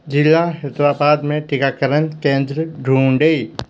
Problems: constant background noise